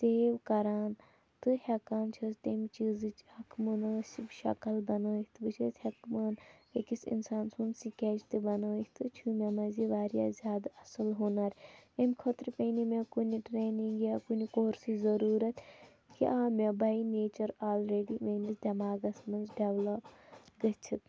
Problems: none marked